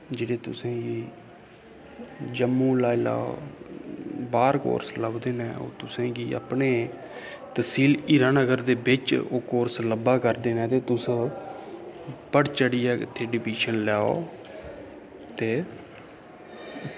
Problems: constant background noise